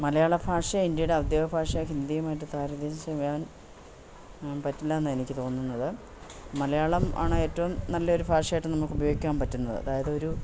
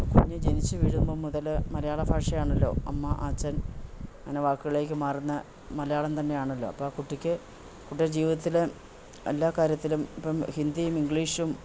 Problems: none marked